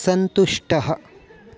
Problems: constant background noise